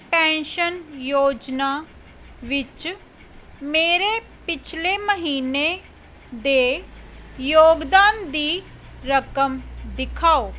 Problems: none marked